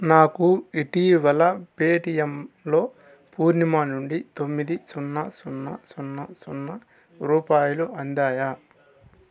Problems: constant background noise, background conversations at intervals